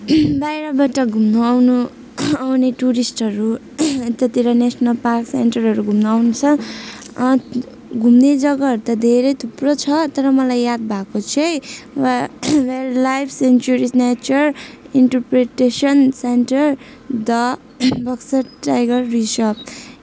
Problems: none marked